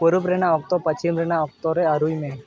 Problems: constant background noise